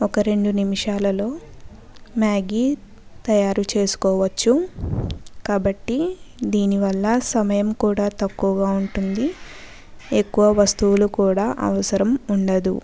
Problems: background conversations at intervals